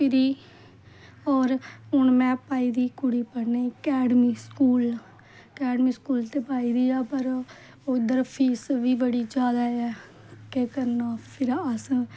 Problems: none marked